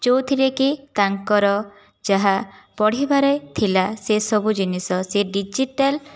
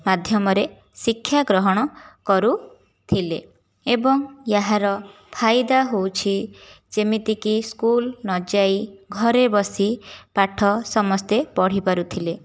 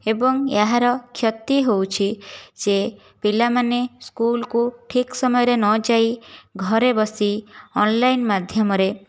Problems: none marked